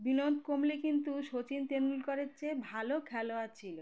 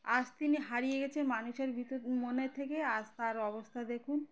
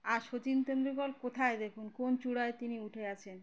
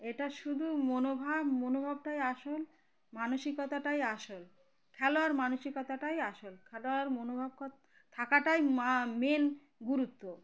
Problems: constant background noise, continuous background conversations